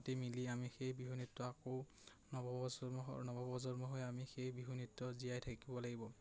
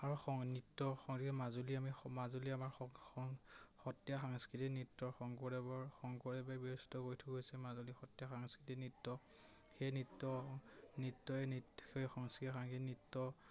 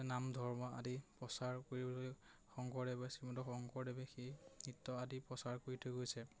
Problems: none marked